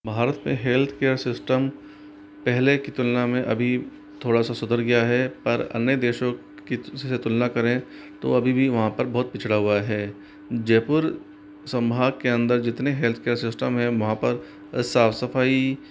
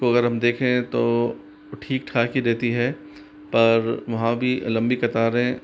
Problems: constant background noise